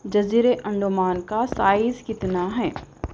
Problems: background sounds at intervals